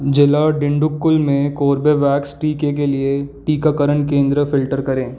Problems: none marked